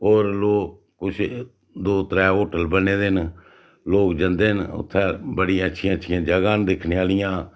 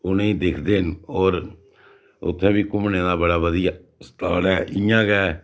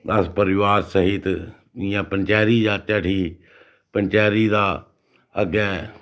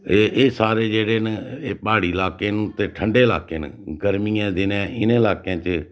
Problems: none marked